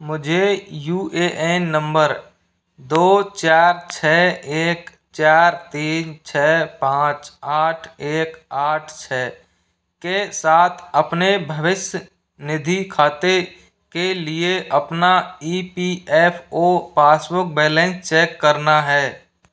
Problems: background sounds at intervals